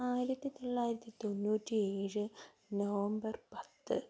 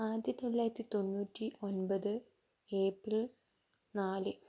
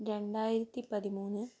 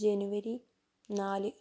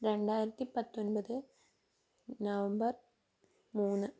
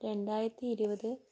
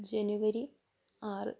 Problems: low volume